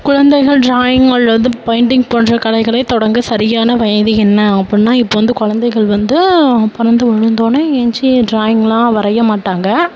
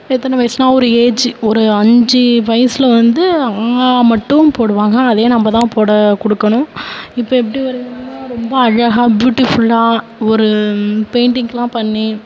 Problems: background conversations at intervals